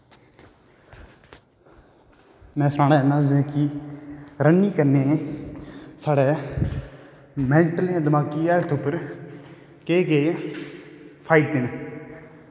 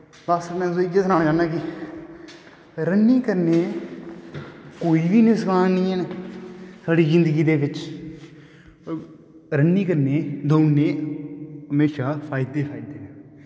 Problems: background sounds at intervals, echo